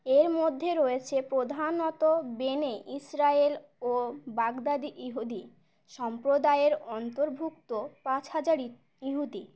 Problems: constant background noise